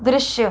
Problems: constant background noise